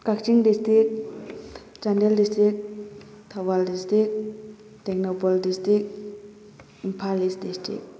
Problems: none marked